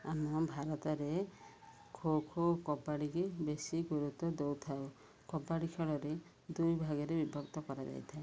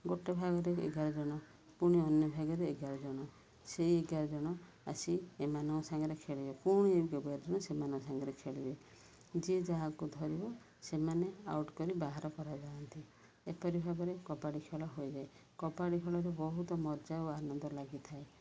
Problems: none marked